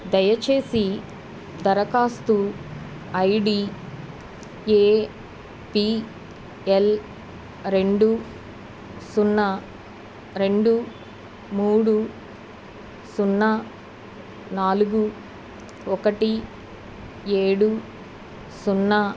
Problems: none marked